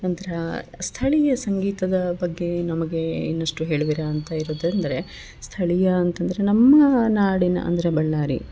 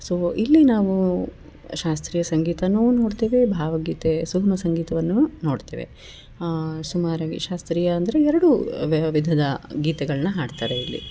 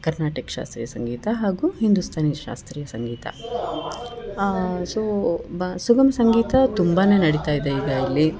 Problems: background conversations at intervals